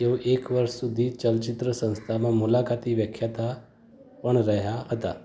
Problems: background sounds at intervals, background conversations at intervals